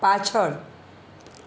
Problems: none marked